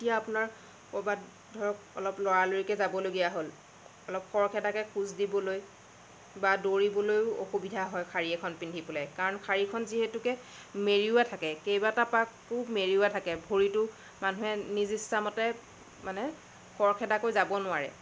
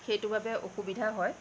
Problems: constant background noise, low volume